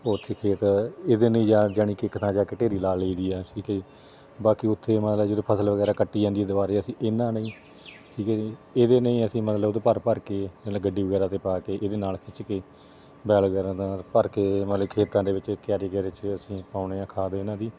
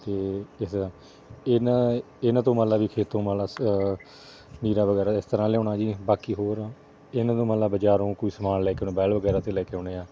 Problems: none marked